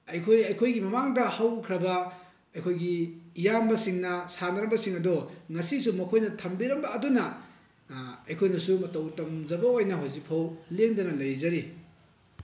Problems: constant background noise